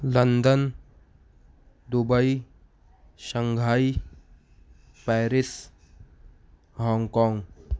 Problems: none marked